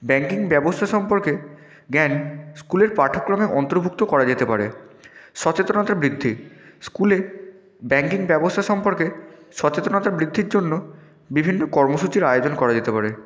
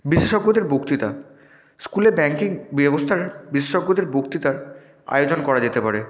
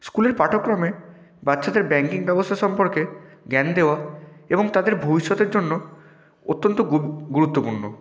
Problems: none marked